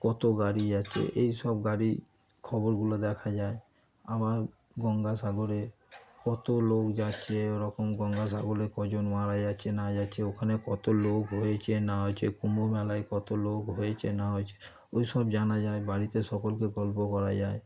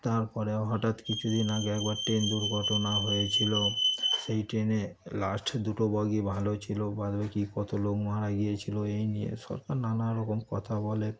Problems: constant background noise, background conversations at intervals